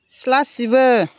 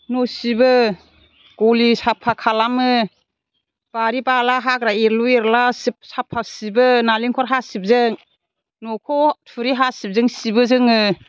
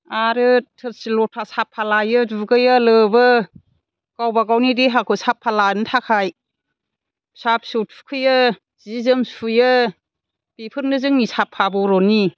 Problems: none marked